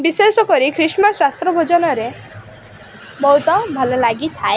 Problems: none marked